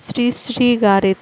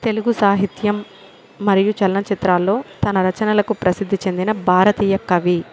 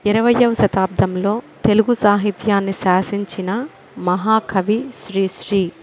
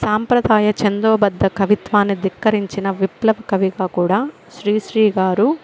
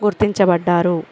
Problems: constant background noise